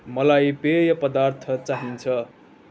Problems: background sounds at intervals